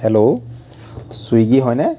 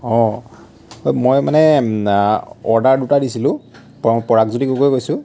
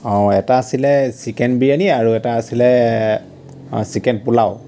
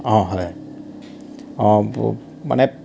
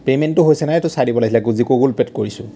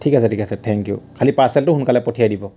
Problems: constant background noise